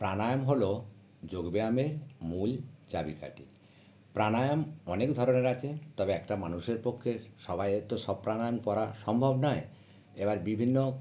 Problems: none marked